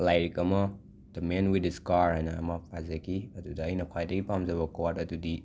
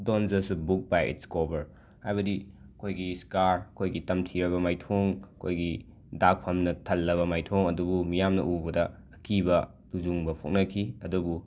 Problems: background sounds at intervals